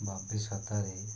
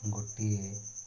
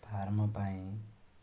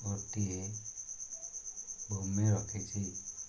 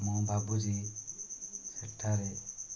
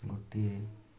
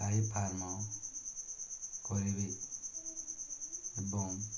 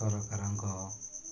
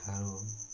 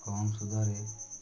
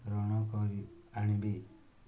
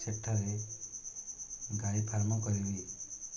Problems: constant background noise, continuous background conversations